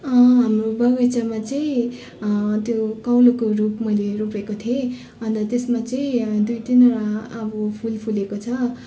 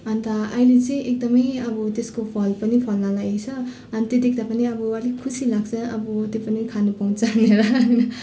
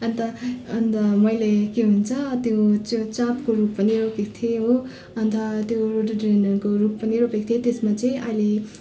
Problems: constant background noise, continuous background conversations